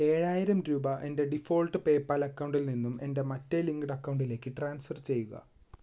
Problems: background sounds at intervals